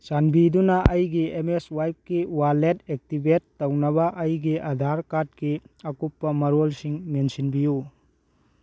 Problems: none marked